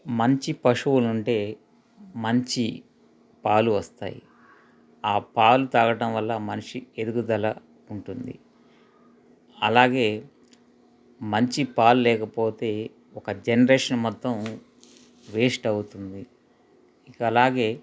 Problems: none marked